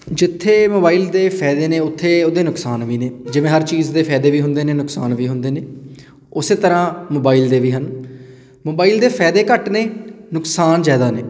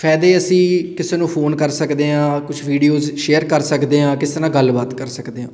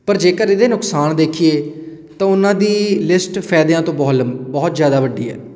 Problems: constant background noise